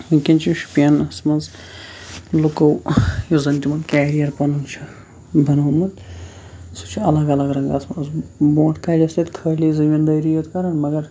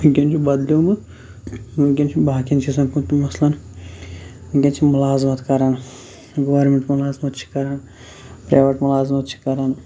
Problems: constant background noise